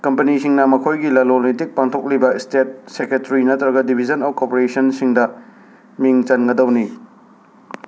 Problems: constant background noise